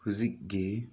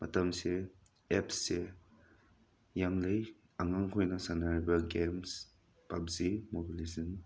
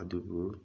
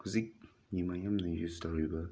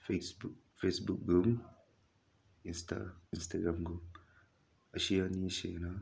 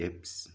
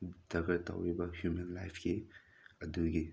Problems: none marked